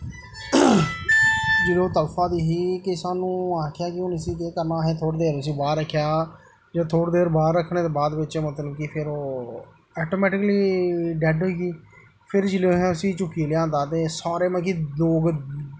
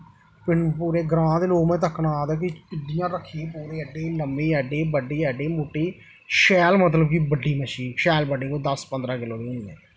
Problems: constant background noise